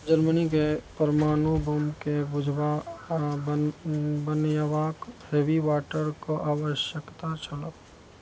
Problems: none marked